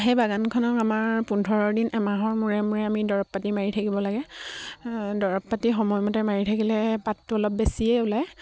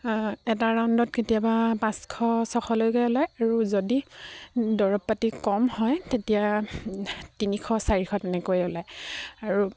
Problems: low volume